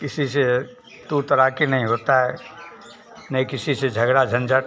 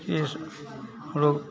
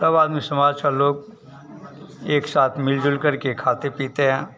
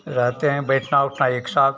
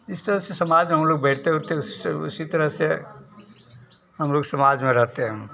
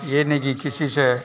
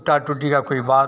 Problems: none marked